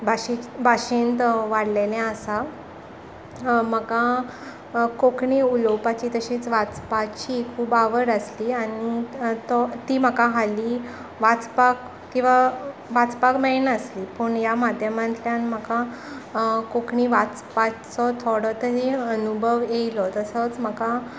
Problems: constant background noise